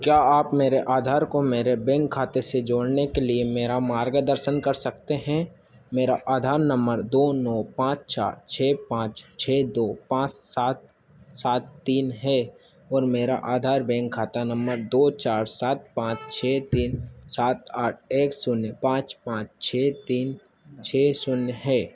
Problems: constant background noise